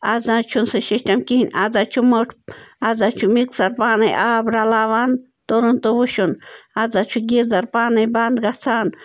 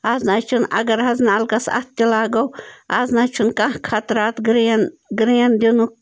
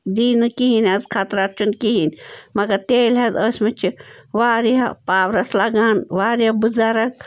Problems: constant background noise